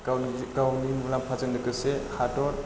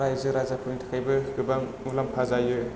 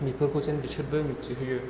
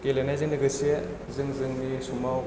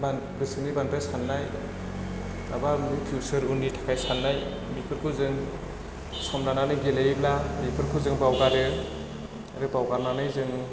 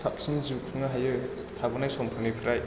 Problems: constant background noise